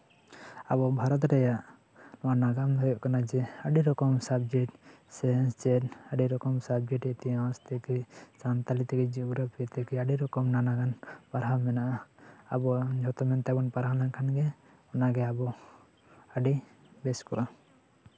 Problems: constant background noise, continuous background conversations